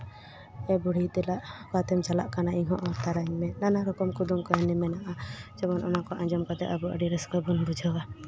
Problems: constant background noise